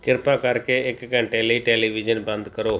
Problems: background sounds at intervals